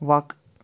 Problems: none marked